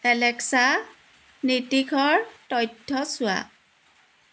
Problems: background sounds at intervals